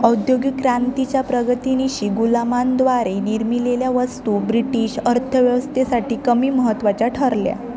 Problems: constant background noise, continuous background conversations